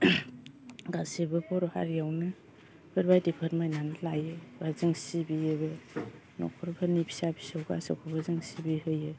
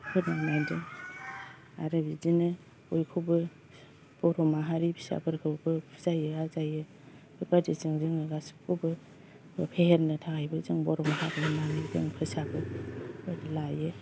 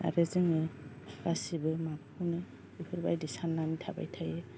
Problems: constant background noise